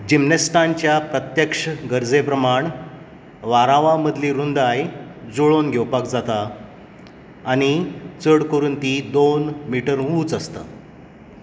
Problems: none marked